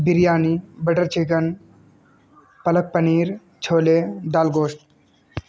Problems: constant background noise